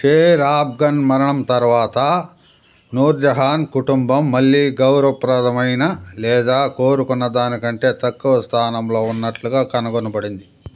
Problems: constant background noise